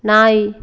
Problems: none marked